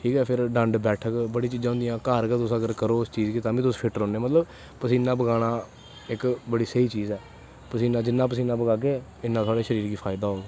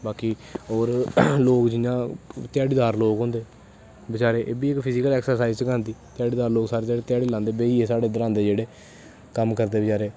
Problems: constant background noise